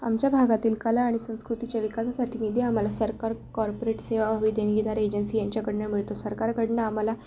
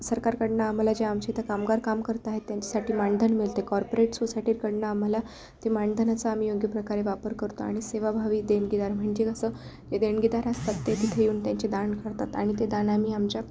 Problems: none marked